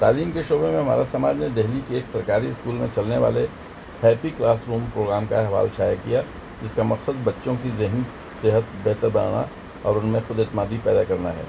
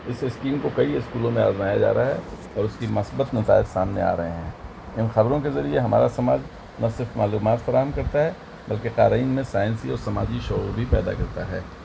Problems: constant background noise